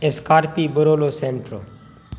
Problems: constant background noise